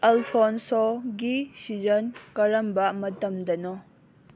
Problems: none marked